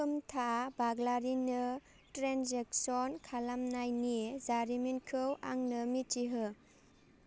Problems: none marked